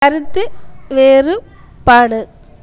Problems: constant background noise, background conversations at intervals